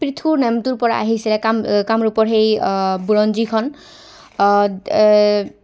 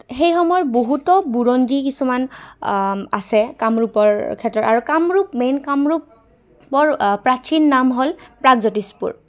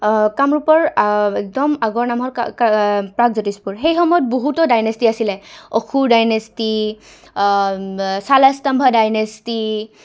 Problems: background sounds at intervals, background conversations at intervals